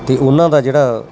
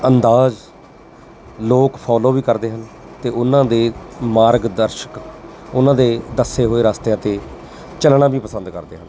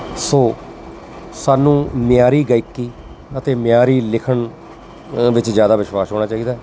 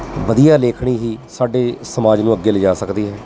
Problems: constant background noise